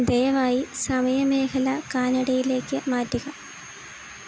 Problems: constant background noise